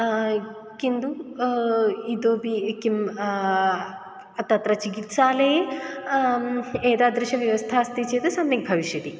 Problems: background sounds at intervals